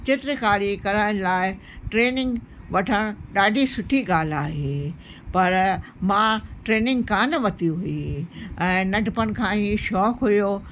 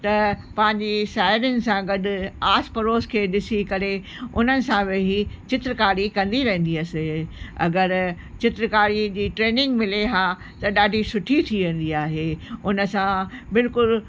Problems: constant background noise